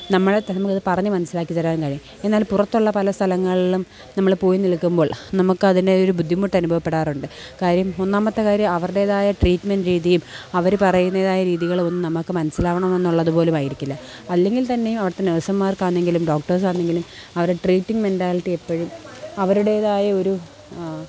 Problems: background sounds at intervals